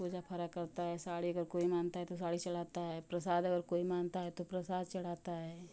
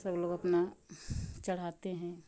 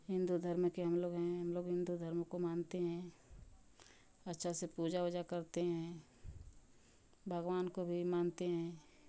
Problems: constant background noise